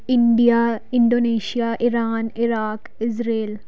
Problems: background sounds at intervals